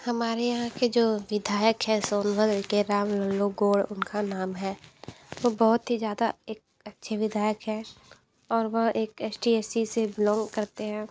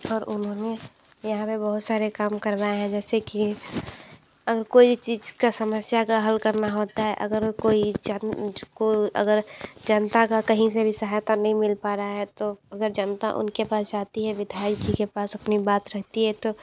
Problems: background sounds at intervals